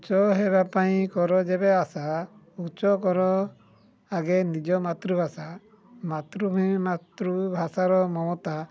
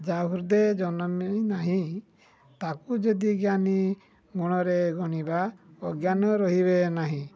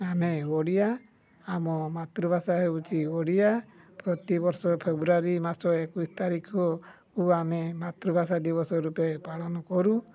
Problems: low volume